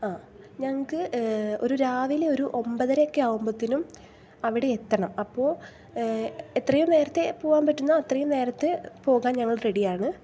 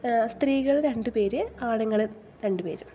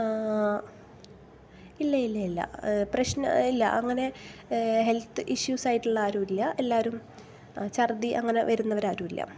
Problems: none marked